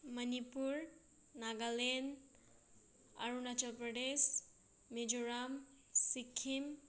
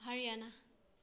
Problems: none marked